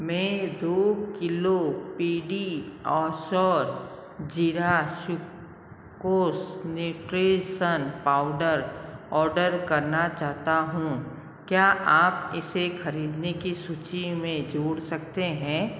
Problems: none marked